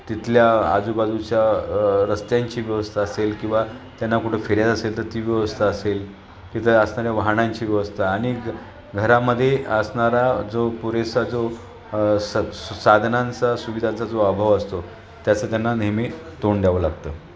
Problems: constant background noise, continuous background conversations